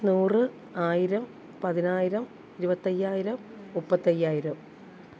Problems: low volume